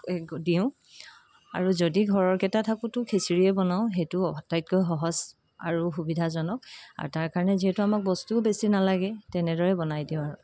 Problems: constant background noise, background conversations at intervals